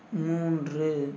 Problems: constant background noise